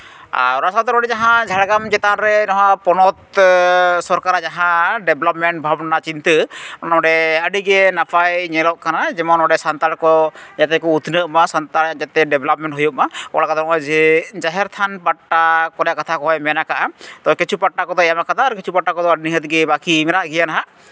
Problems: none marked